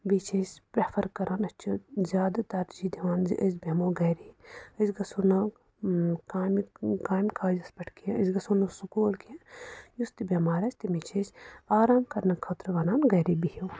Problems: background sounds at intervals